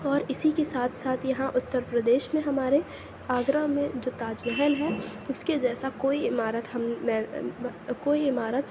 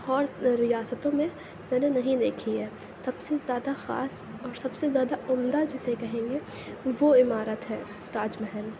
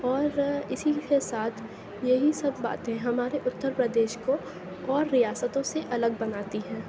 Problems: constant background noise